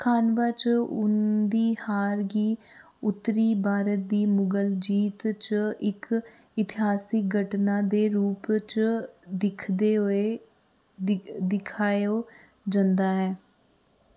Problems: background sounds at intervals